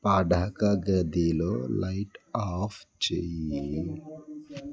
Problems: background conversations at intervals